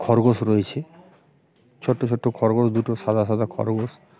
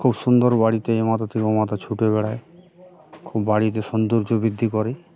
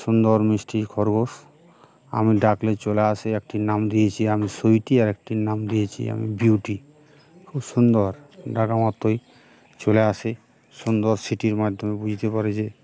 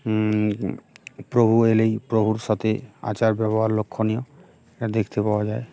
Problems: background sounds at intervals